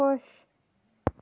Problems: background sounds at intervals, low volume